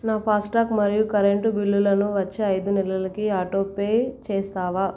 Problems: none marked